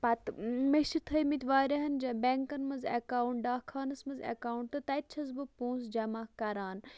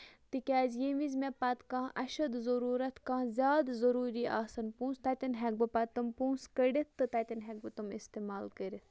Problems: none marked